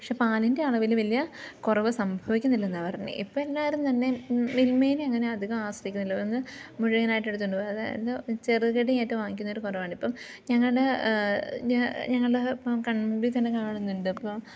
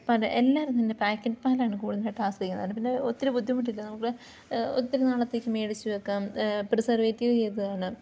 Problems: constant background noise, low volume